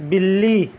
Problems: constant background noise